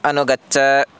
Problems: none marked